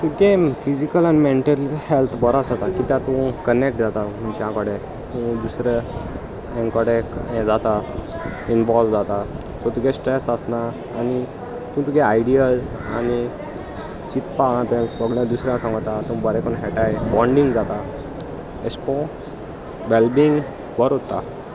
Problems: constant background noise, continuous background conversations